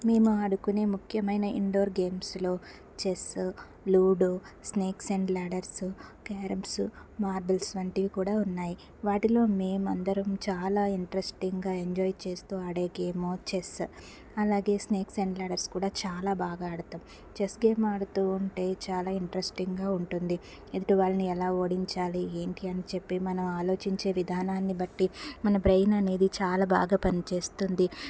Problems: constant background noise